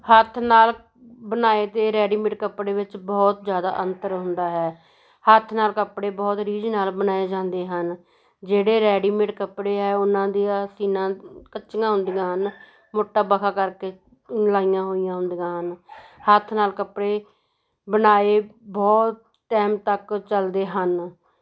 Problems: background sounds at intervals, continuous background conversations